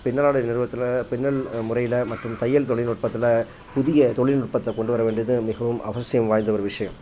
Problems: none marked